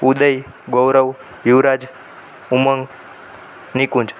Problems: none marked